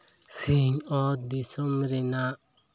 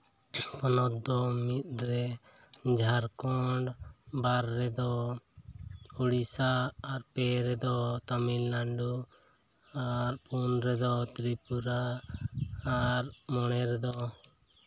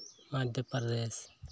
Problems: background sounds at intervals